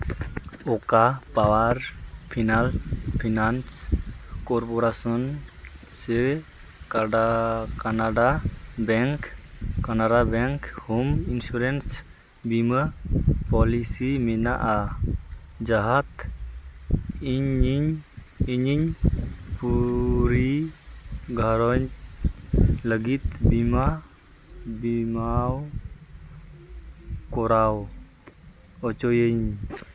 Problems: none marked